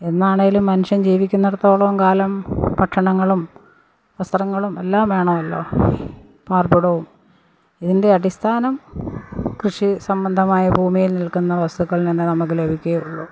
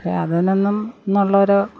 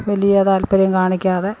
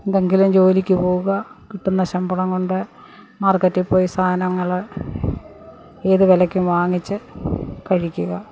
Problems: background sounds at intervals